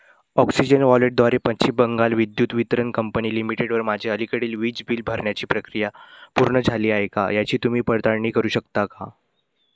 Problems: none marked